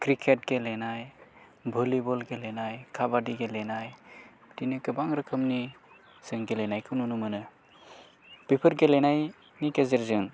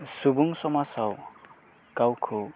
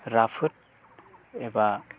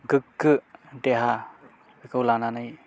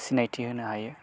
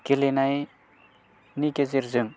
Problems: low volume